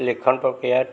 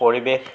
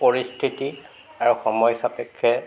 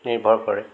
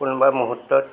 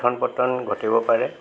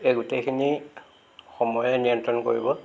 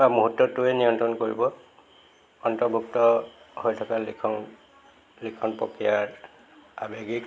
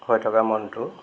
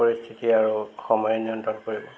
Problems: constant background noise, background conversations at intervals